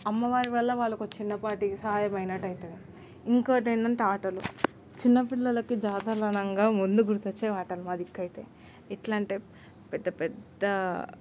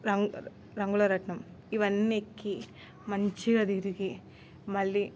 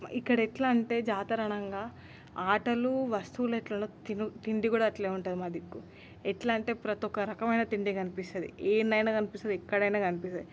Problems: constant background noise